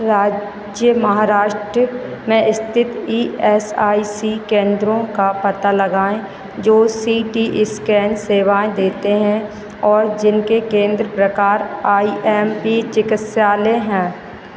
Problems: none marked